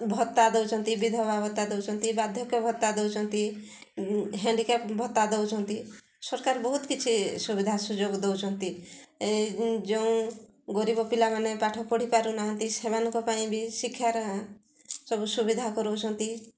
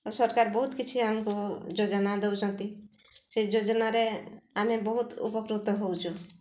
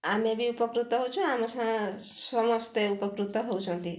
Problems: none marked